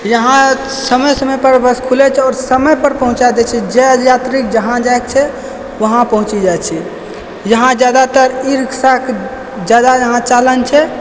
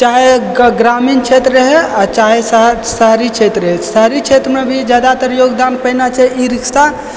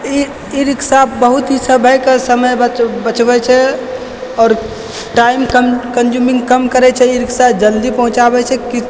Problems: constant background noise